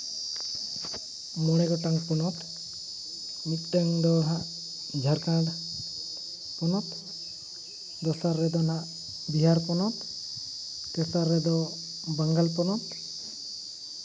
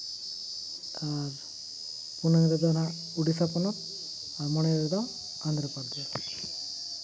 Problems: constant background noise